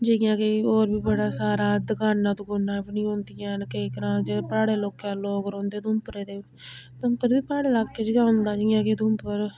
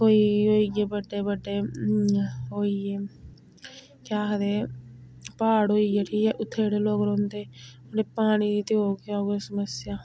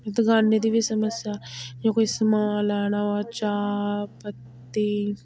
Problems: none marked